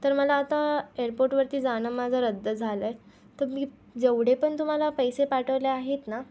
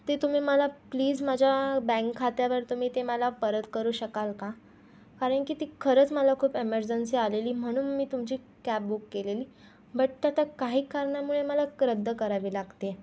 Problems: constant background noise